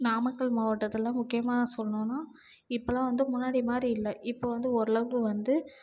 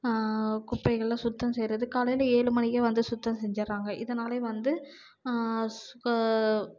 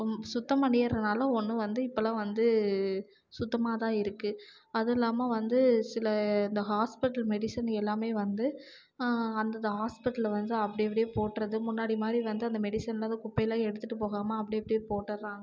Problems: low volume